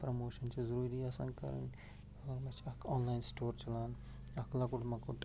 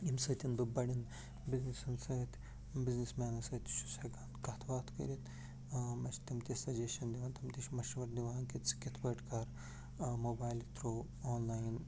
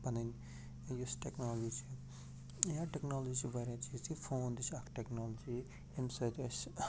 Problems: constant background noise, low volume